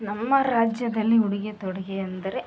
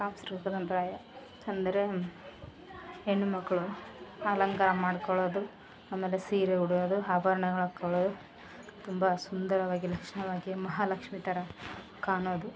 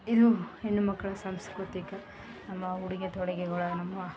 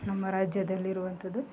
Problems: background sounds at intervals